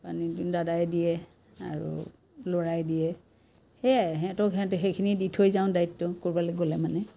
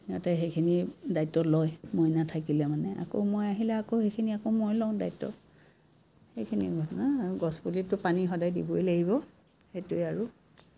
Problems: constant background noise